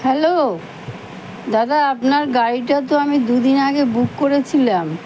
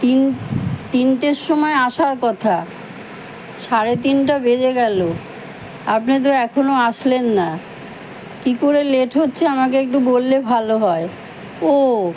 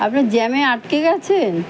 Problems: constant background noise